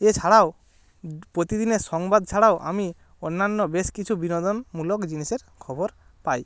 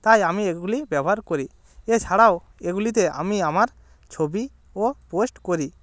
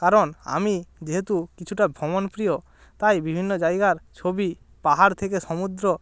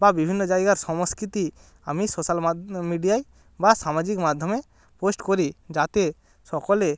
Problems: none marked